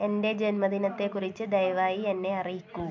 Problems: low volume